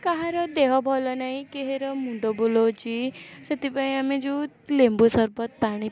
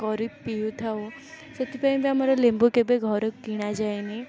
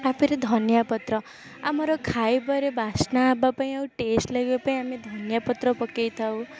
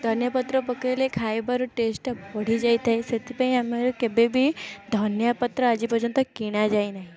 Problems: none marked